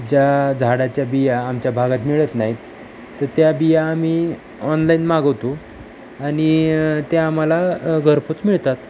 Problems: constant background noise